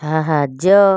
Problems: none marked